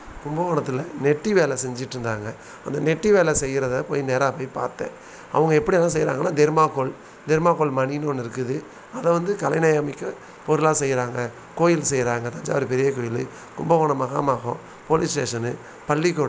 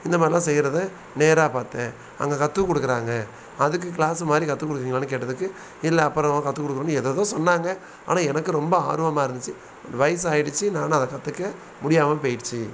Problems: constant background noise